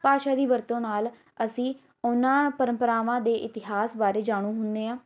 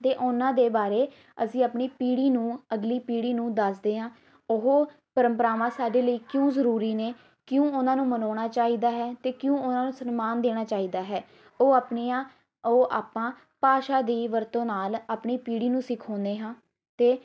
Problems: background sounds at intervals, background conversations at intervals